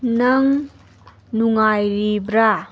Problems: background sounds at intervals